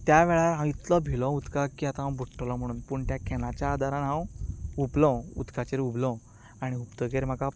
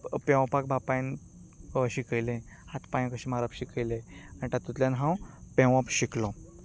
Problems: background conversations at intervals